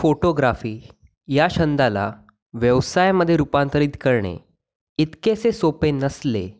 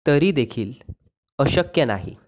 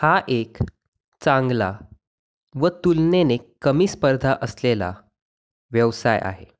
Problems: constant background noise